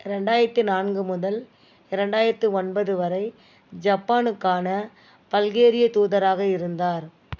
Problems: background sounds at intervals